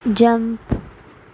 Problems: constant background noise